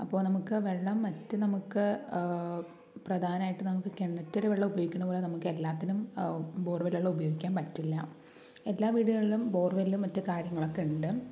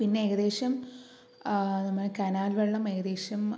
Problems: low volume